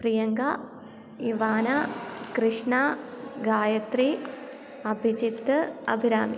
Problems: background sounds at intervals